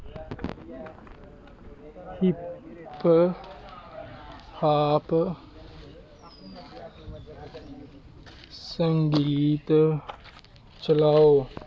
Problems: constant background noise